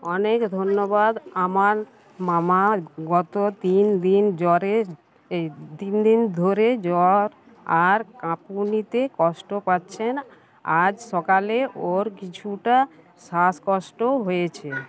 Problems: constant background noise, continuous background conversations